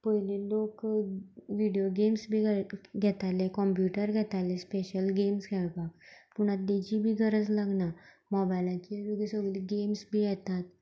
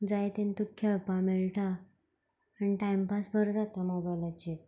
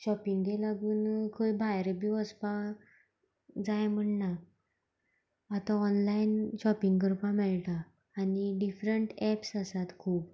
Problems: none marked